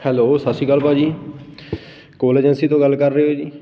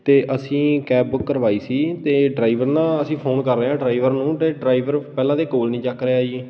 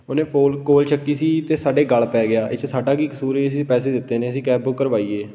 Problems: background sounds at intervals